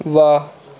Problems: constant background noise